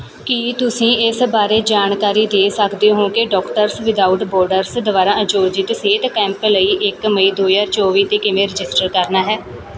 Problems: none marked